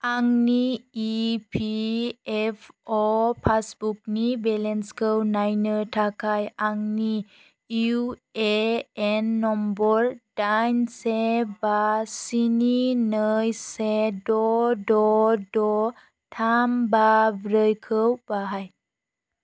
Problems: none marked